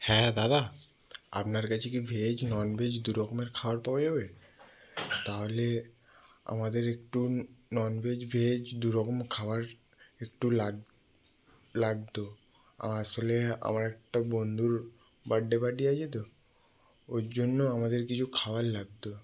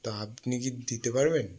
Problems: background sounds at intervals